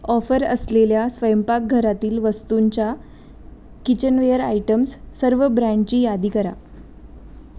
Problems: none marked